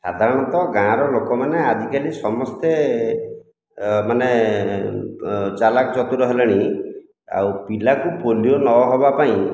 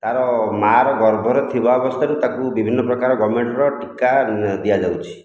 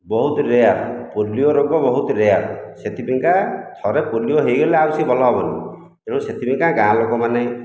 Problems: none marked